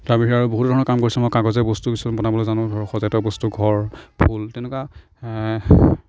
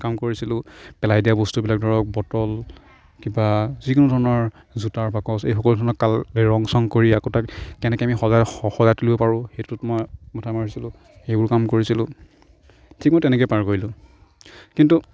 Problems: background sounds at intervals, background conversations at intervals